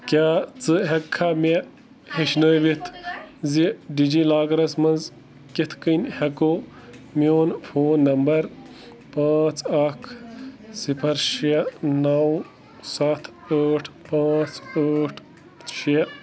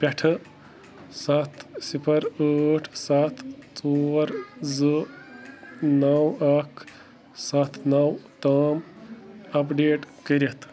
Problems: constant background noise